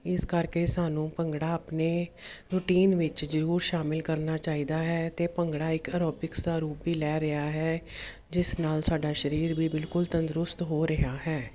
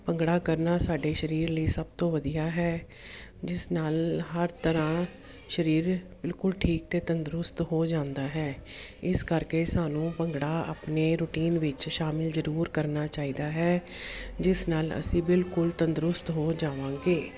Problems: constant background noise